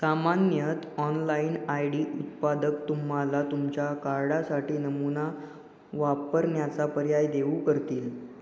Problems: background sounds at intervals